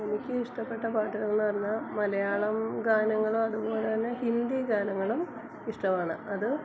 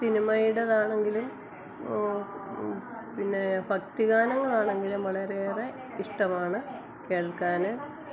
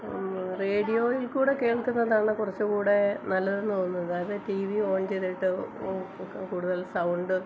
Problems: background sounds at intervals, low volume